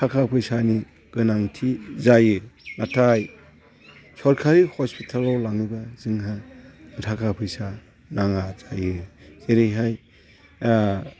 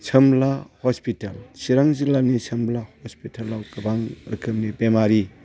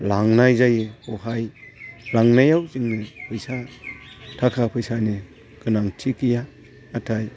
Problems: constant background noise